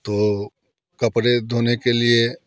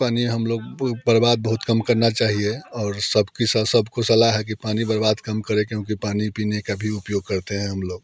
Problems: constant background noise, continuous background conversations